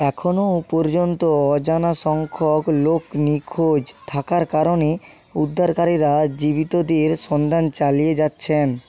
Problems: constant background noise